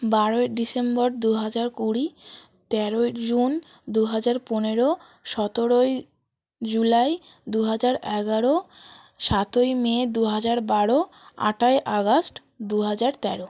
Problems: none marked